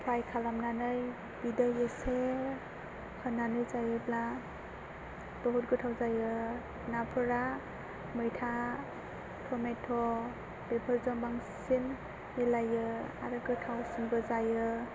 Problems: constant background noise, low volume